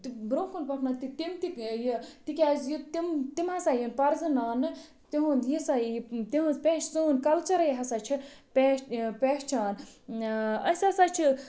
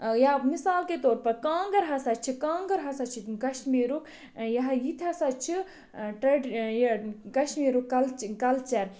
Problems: background sounds at intervals